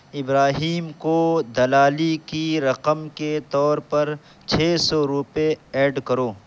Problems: constant background noise